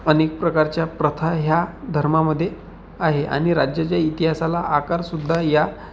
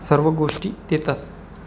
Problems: constant background noise